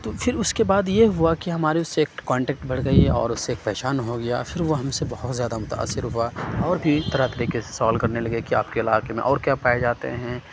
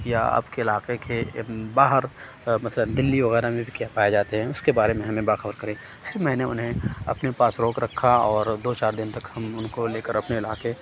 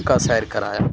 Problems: none marked